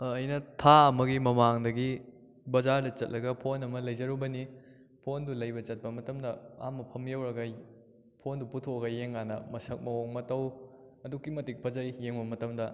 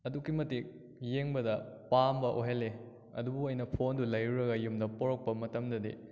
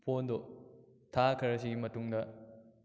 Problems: echo